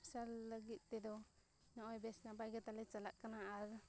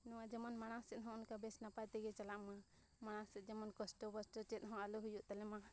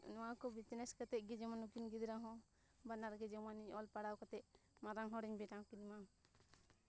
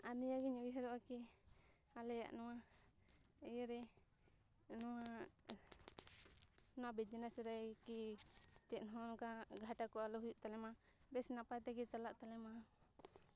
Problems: background sounds at intervals